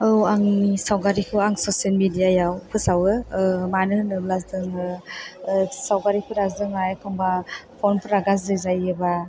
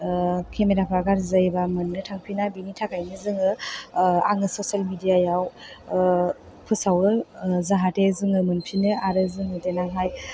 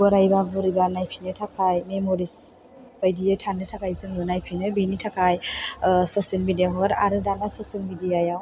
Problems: background sounds at intervals